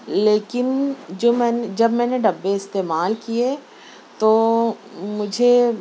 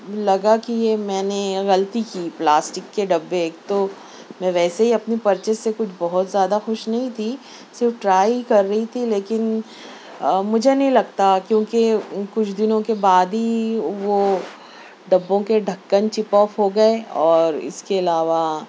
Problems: constant background noise